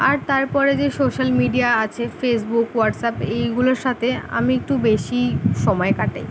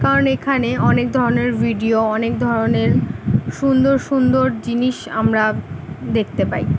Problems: background sounds at intervals